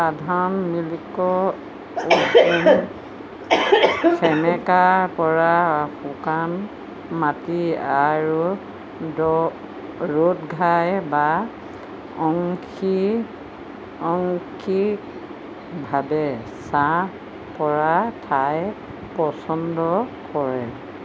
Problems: constant background noise